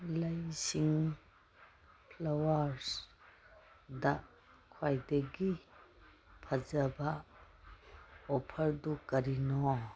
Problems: background sounds at intervals